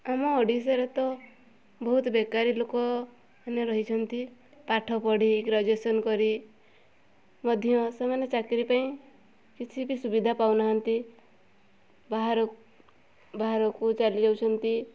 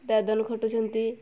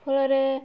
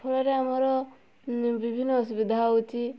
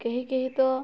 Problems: background sounds at intervals